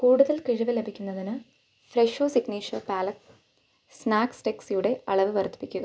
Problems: low volume